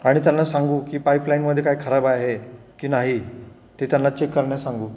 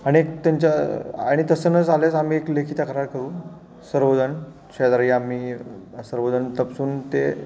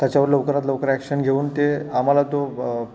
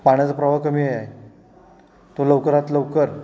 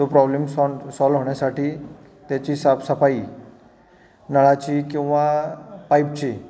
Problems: none marked